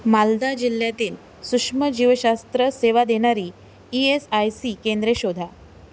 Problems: constant background noise